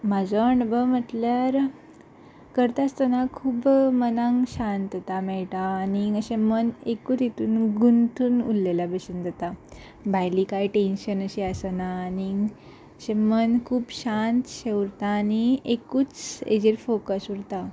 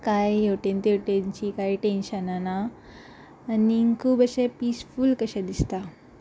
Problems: constant background noise